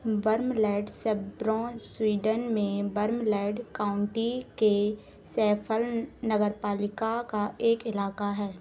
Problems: constant background noise